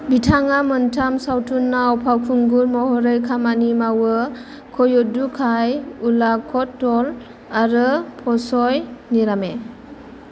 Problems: constant background noise